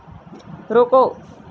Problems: constant background noise